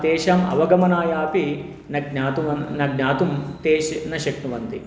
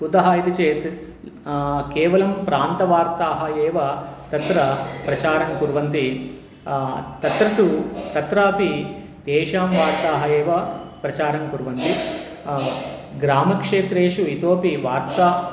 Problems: background sounds at intervals